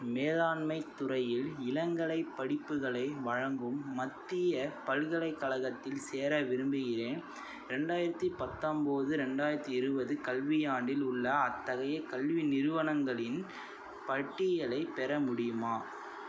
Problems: none marked